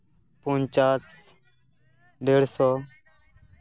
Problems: continuous background conversations